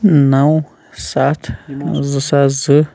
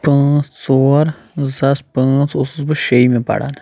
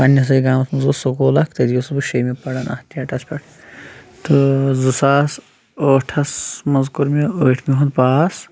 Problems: constant background noise